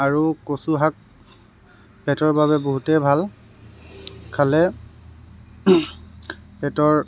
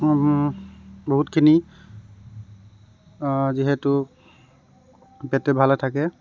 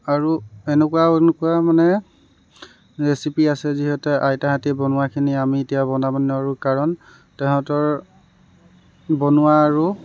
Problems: none marked